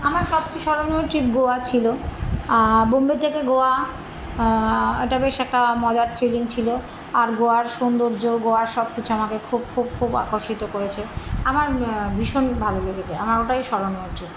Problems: none marked